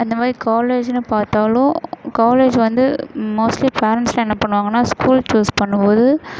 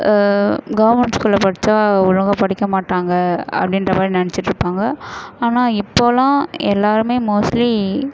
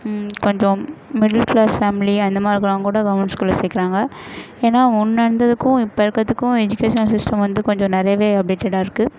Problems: none marked